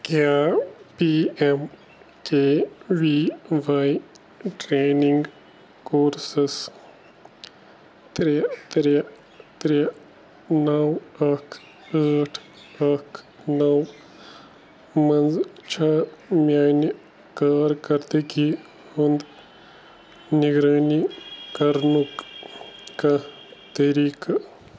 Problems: constant background noise